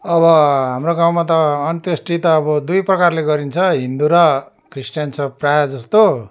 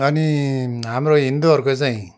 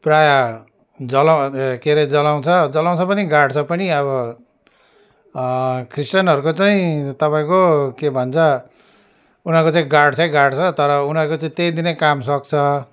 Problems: constant background noise, continuous background conversations